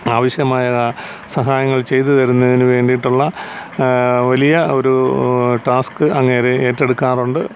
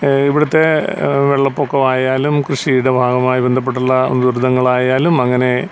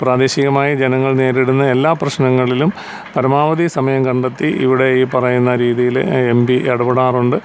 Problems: none marked